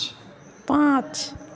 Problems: none marked